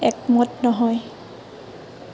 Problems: constant background noise